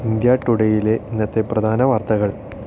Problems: constant background noise